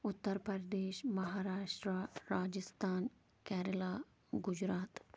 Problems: none marked